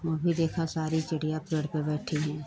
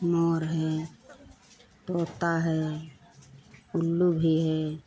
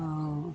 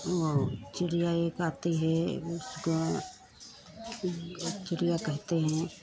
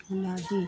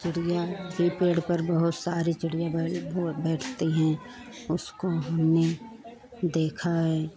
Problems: none marked